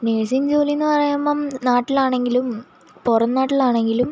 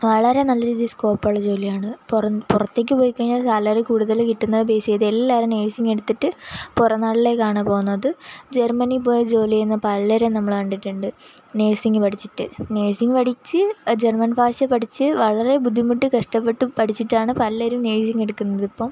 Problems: background sounds at intervals